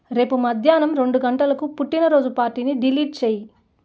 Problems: none marked